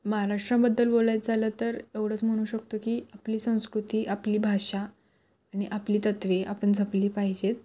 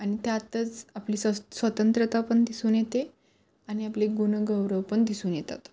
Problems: none marked